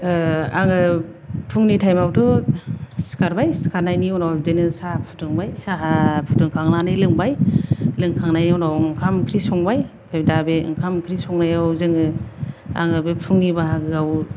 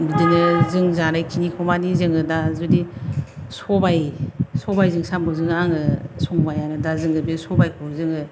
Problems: none marked